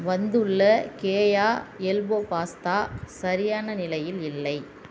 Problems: none marked